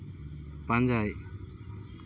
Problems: constant background noise